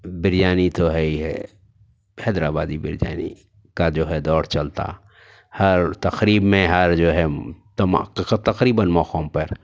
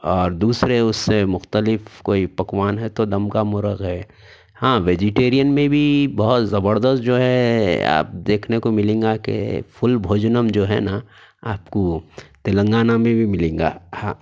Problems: none marked